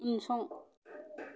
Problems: background sounds at intervals